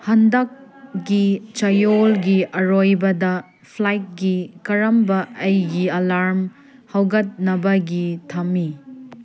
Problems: background sounds at intervals, background conversations at intervals